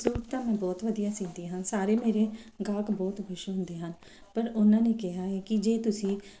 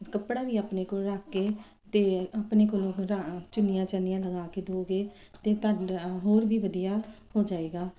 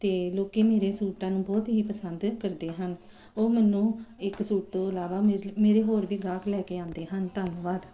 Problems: none marked